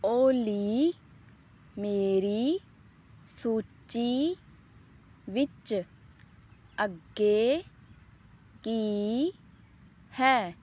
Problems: background sounds at intervals